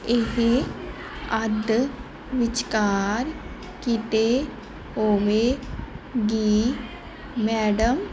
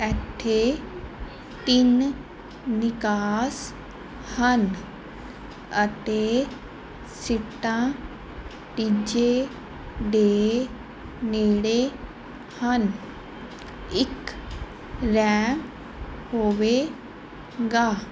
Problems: background sounds at intervals